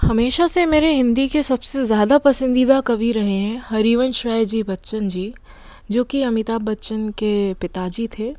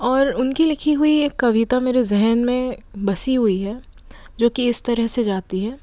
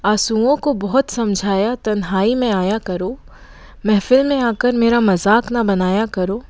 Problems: none marked